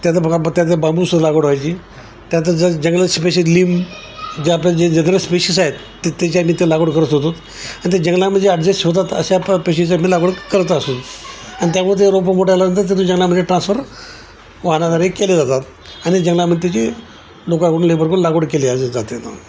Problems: constant background noise, background conversations at intervals